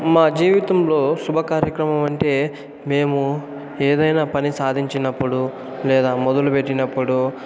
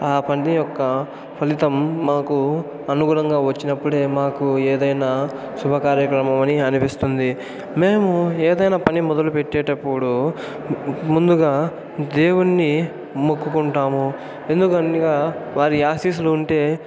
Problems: constant background noise